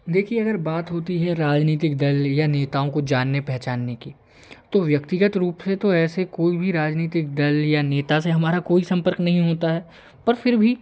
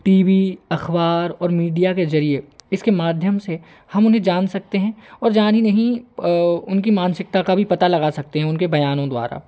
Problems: none marked